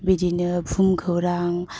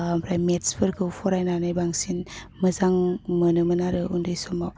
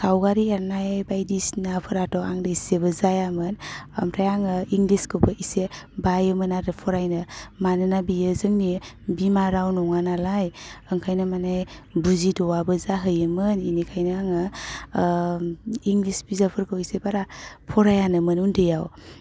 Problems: none marked